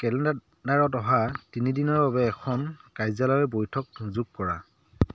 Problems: background sounds at intervals